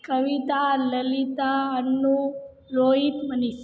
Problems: background sounds at intervals